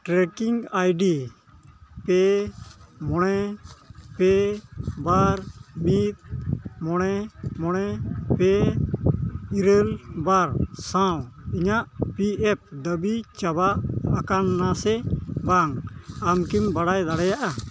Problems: none marked